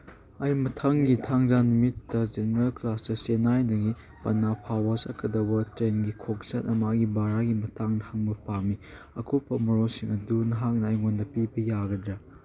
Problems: background sounds at intervals